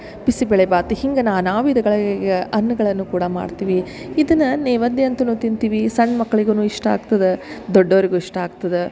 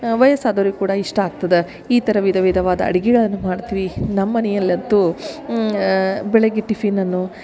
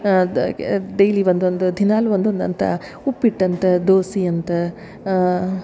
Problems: none marked